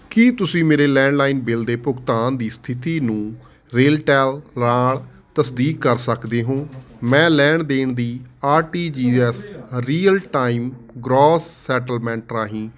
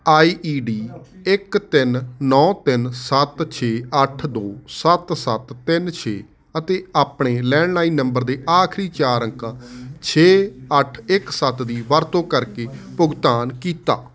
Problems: constant background noise